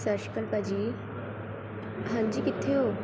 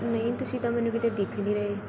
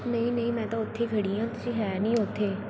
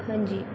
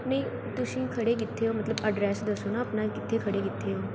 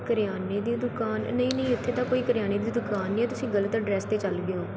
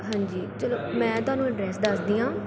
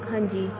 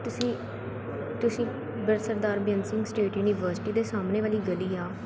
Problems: constant background noise